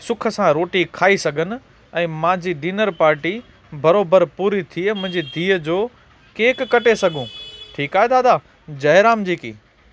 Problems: constant background noise